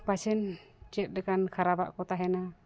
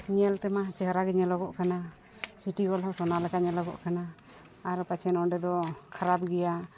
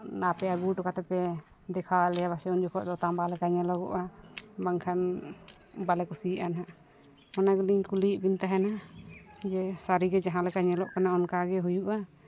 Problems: none marked